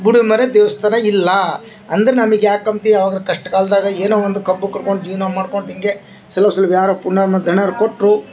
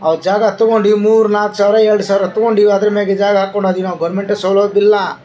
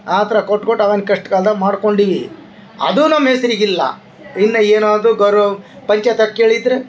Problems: background sounds at intervals